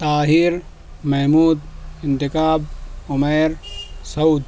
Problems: none marked